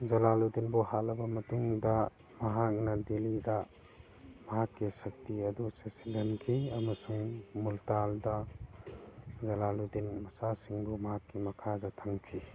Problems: background sounds at intervals